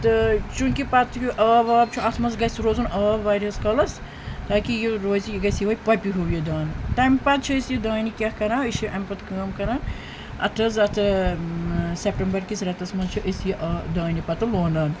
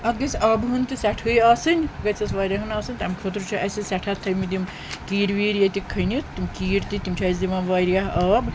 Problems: constant background noise